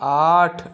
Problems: none marked